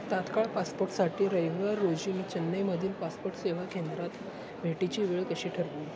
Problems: none marked